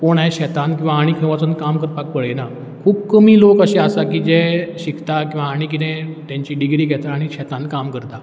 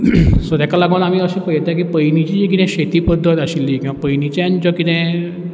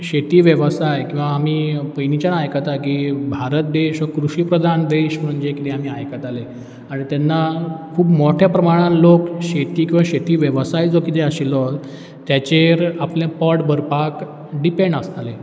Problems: none marked